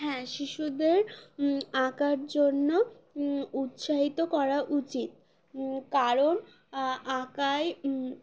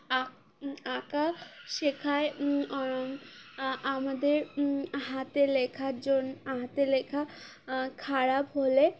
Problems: constant background noise, continuous background conversations